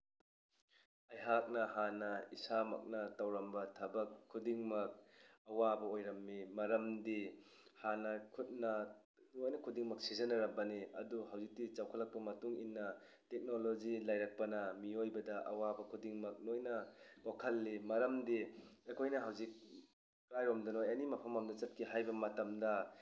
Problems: background sounds at intervals